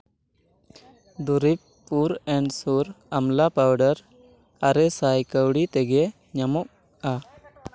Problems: background conversations at intervals